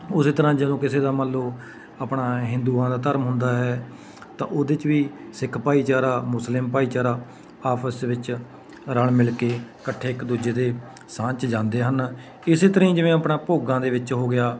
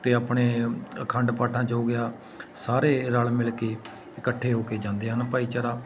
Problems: constant background noise, background conversations at intervals